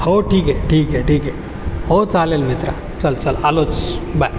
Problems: background sounds at intervals